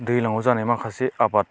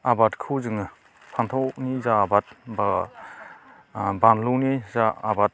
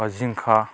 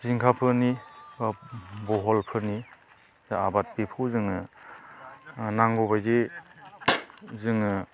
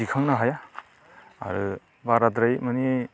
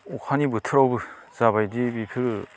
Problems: constant background noise